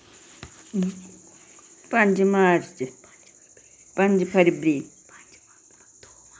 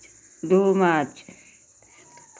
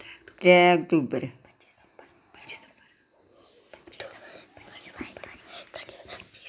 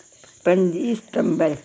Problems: constant background noise, background conversations at intervals